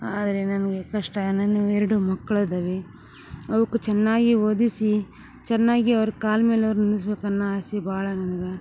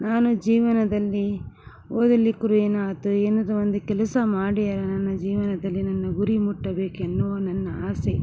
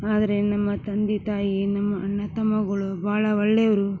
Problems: none marked